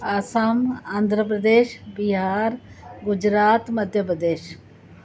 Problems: constant background noise